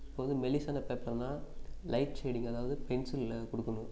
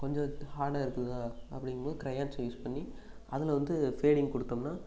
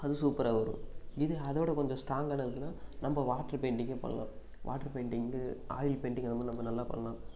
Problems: constant background noise